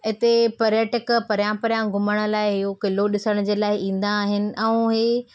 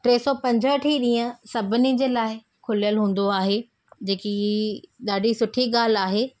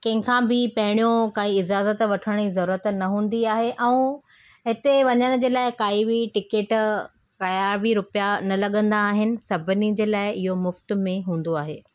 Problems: none marked